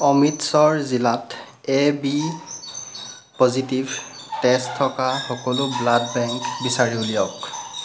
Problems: none marked